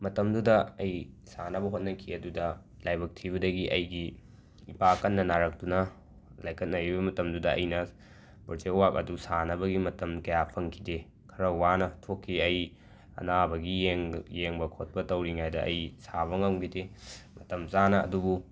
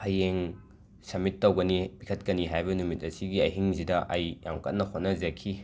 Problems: background sounds at intervals